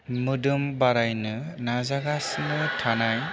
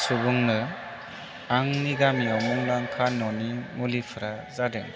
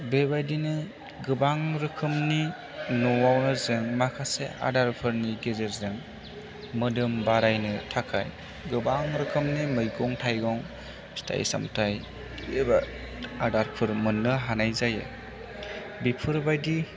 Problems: none marked